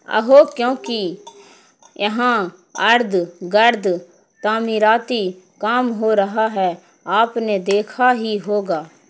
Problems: constant background noise